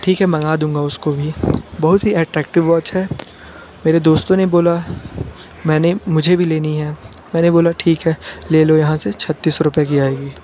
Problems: constant background noise